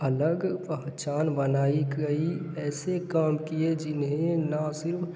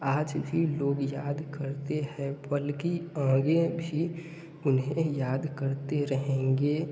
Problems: background sounds at intervals